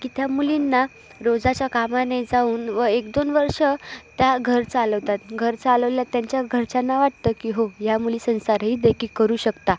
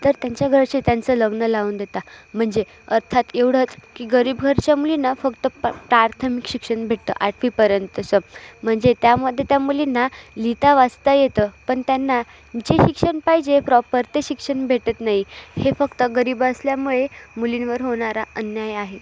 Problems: none marked